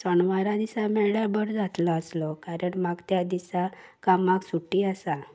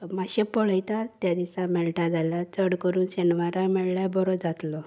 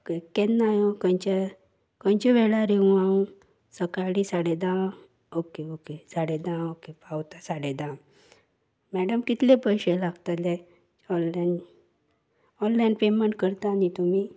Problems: none marked